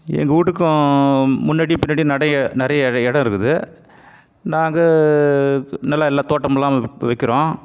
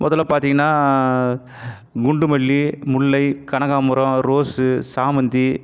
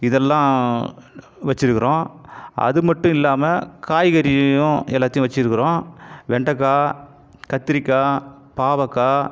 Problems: background sounds at intervals